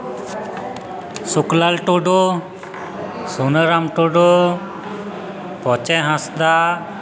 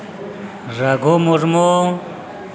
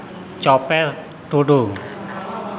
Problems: constant background noise